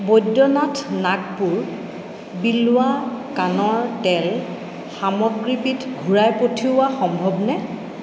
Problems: echo